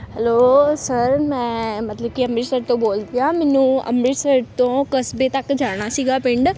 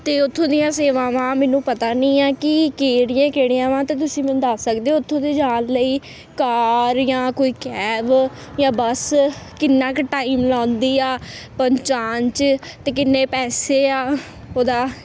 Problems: constant background noise